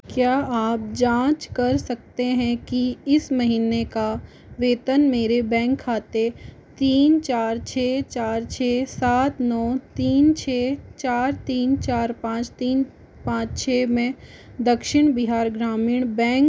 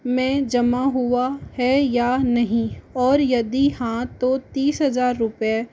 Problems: constant background noise